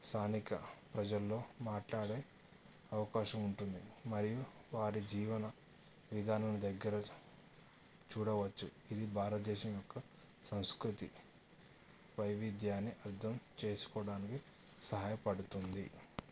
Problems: low volume